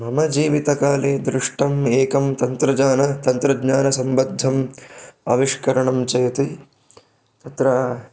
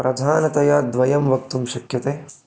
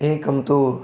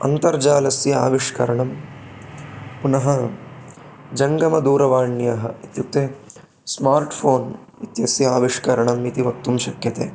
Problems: background sounds at intervals